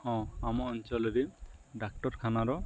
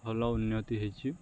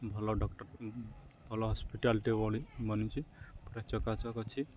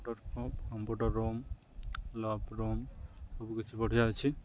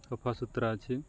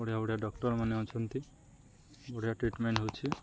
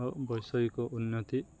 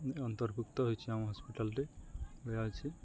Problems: constant background noise, continuous background conversations